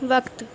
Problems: none marked